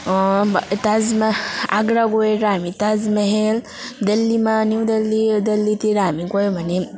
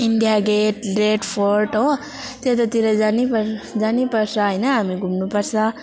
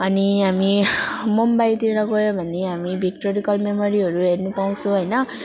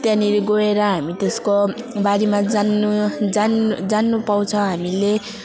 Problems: none marked